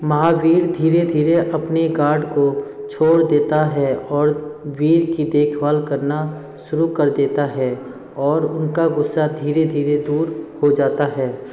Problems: constant background noise, background conversations at intervals